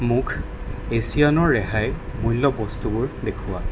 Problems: constant background noise